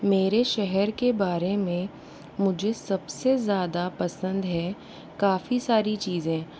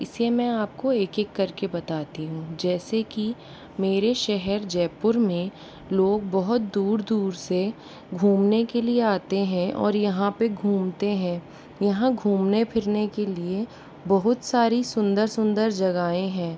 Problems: constant background noise